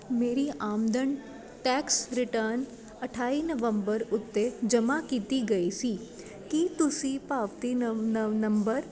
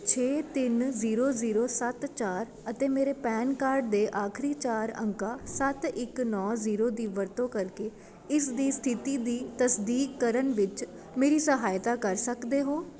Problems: continuous background conversations